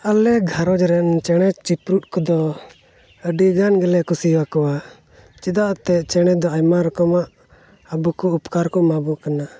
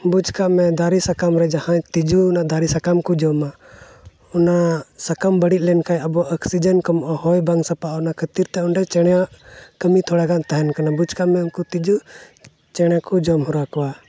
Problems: background sounds at intervals